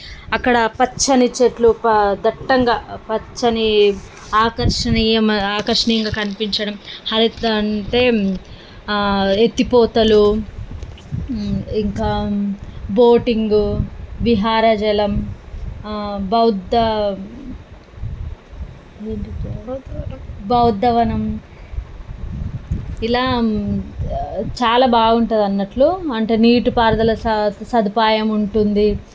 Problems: none marked